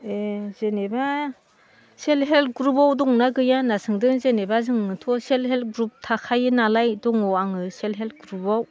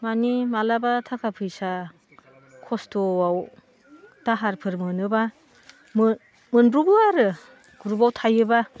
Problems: constant background noise